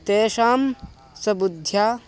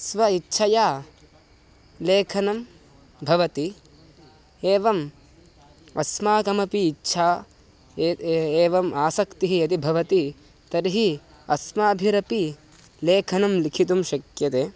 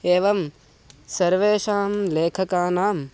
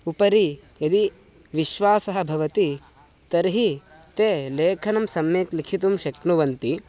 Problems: constant background noise